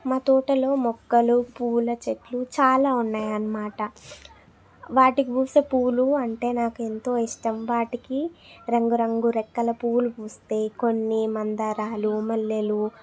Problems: background conversations at intervals